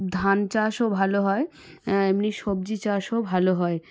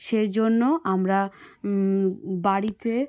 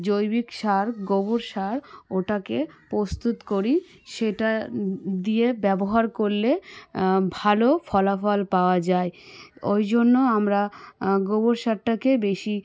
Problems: background sounds at intervals